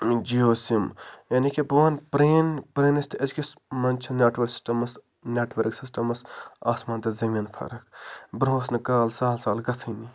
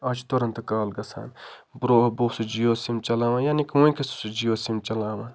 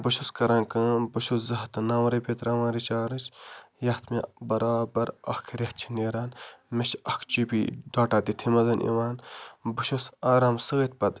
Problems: none marked